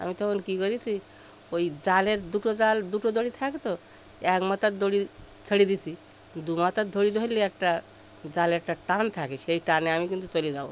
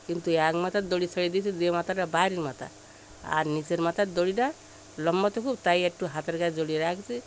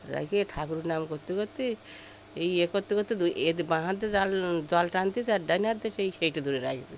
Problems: none marked